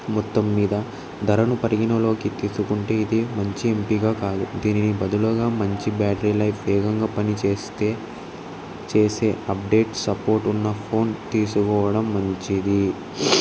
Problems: constant background noise